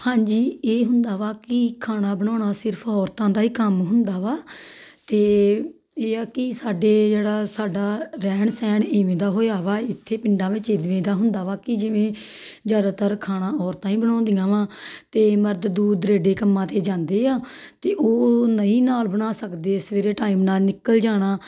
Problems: none marked